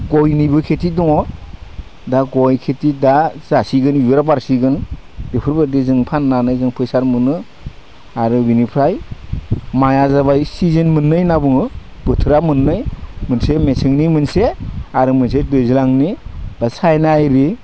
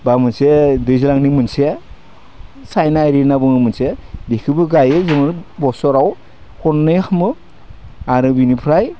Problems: none marked